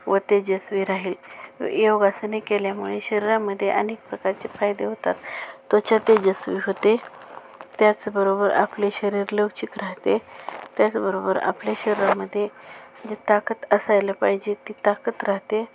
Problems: none marked